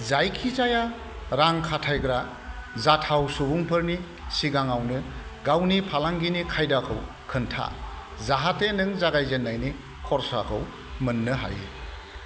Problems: none marked